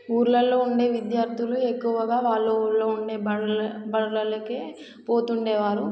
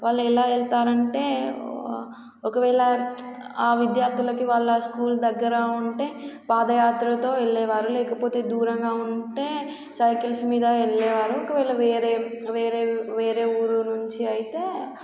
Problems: constant background noise